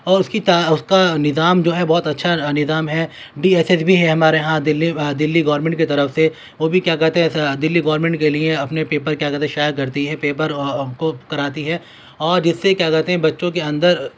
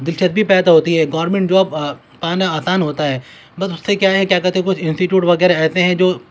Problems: constant background noise